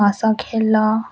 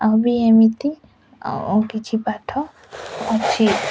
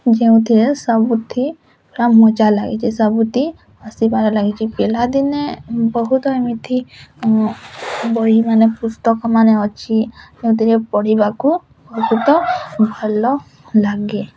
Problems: constant background noise